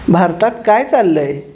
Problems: constant background noise